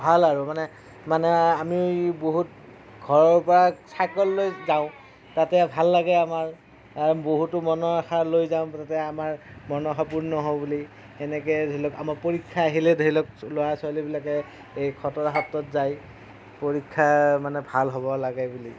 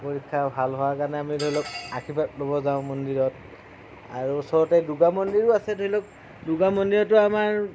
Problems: low volume